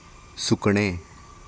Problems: none marked